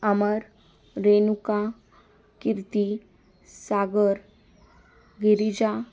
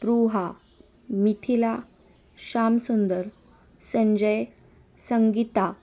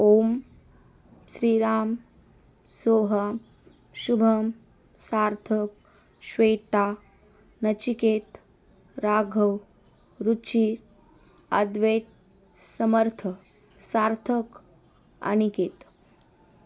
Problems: constant background noise